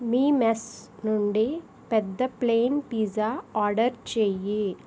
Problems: constant background noise